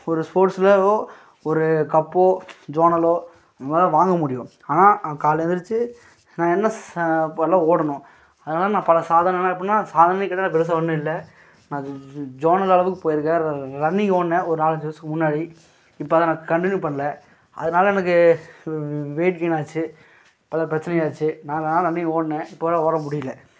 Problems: none marked